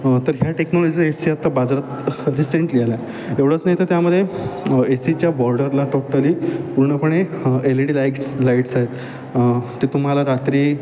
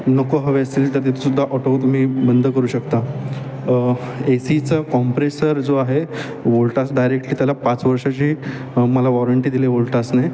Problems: constant background noise, background conversations at intervals